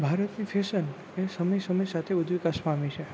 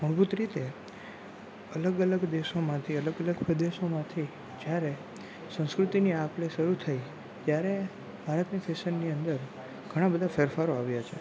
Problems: none marked